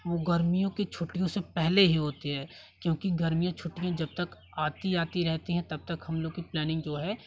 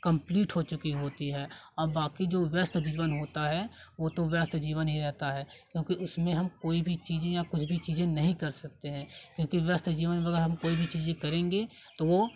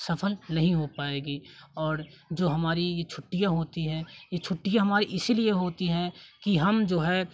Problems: constant background noise, continuous background conversations